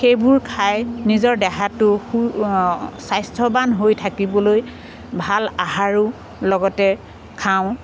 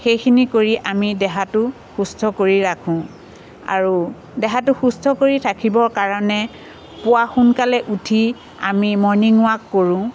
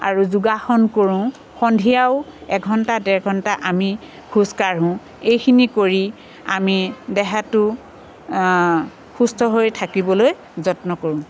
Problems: constant background noise